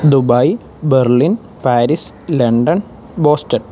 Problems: none marked